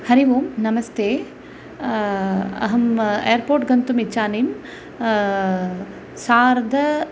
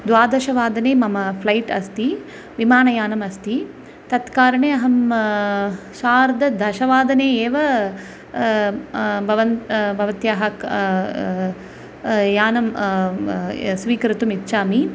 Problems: constant background noise